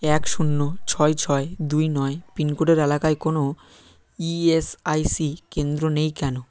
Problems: none marked